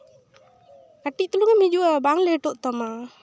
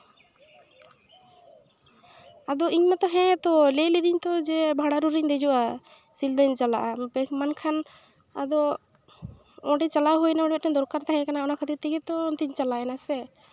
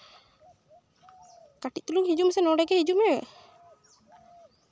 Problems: constant background noise, background conversations at intervals